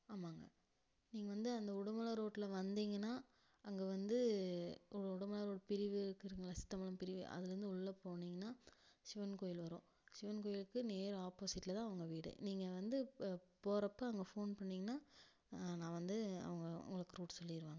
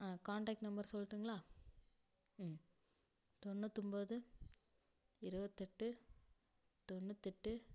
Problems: low volume